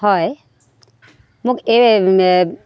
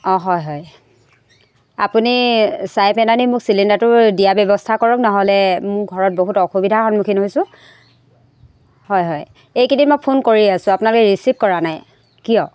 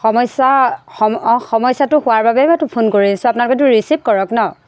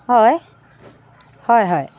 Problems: constant background noise